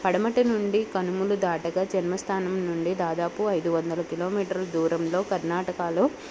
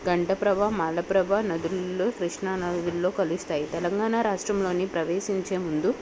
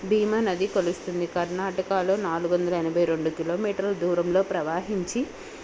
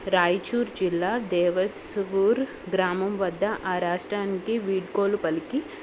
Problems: none marked